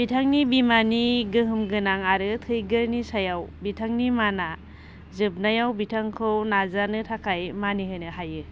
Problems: none marked